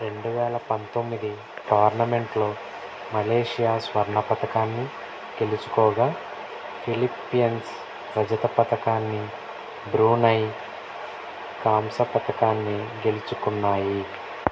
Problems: constant background noise, low volume